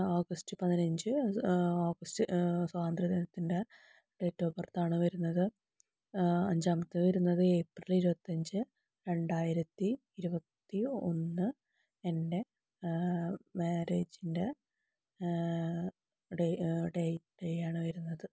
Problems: low volume